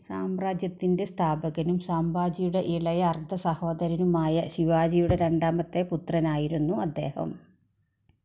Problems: low volume